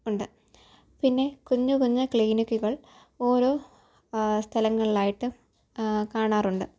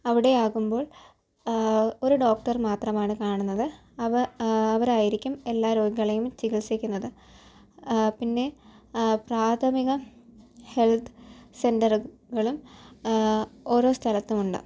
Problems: low volume